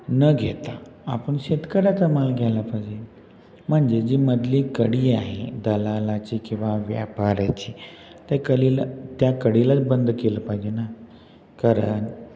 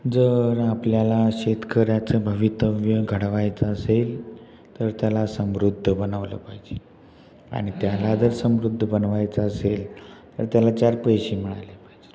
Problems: constant background noise, echo